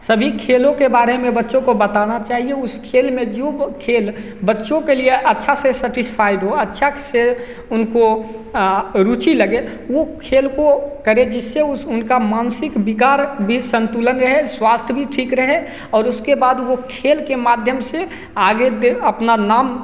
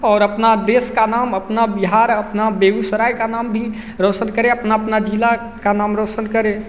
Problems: constant background noise, echo